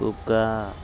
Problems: constant background noise